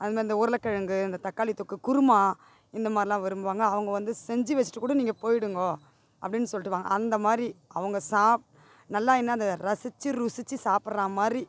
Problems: none marked